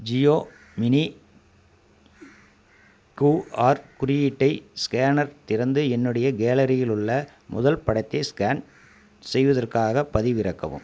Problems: constant background noise